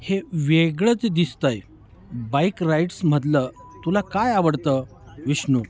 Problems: none marked